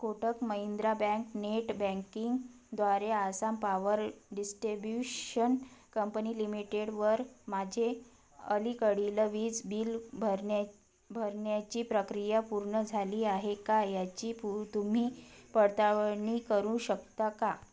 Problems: none marked